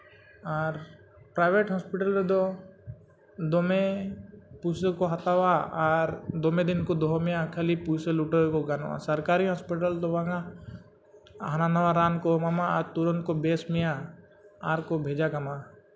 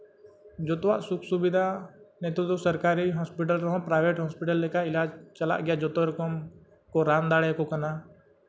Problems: constant background noise